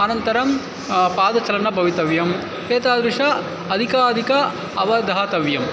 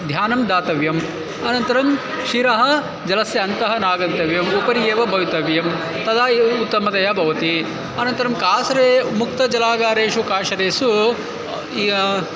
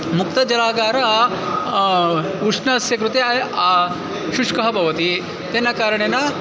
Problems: constant background noise